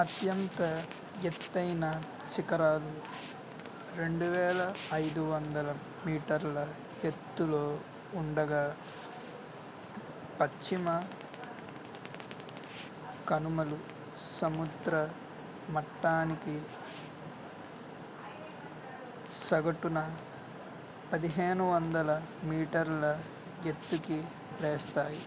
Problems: constant background noise, background conversations at intervals